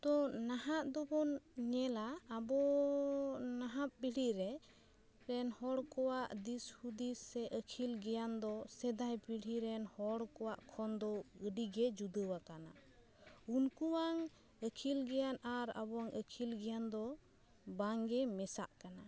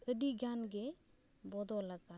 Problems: background sounds at intervals